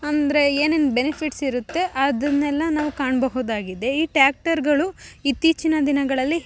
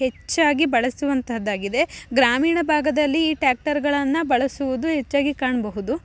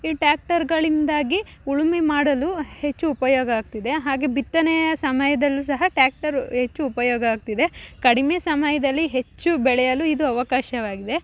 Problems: none marked